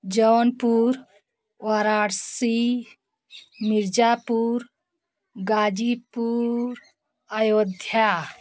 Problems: none marked